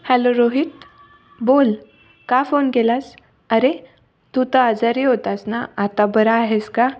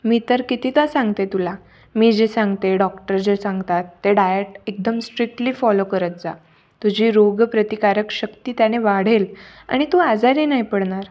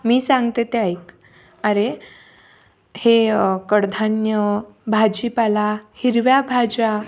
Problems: background sounds at intervals